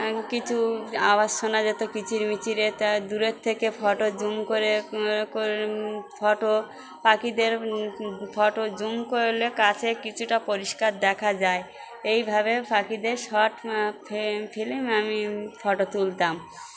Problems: constant background noise, background conversations at intervals